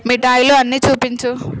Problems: constant background noise